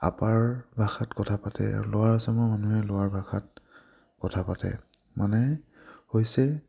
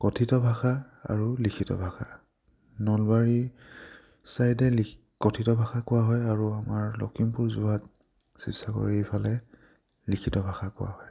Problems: none marked